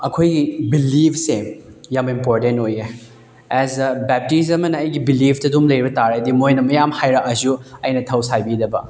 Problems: background sounds at intervals